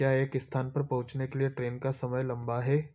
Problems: background sounds at intervals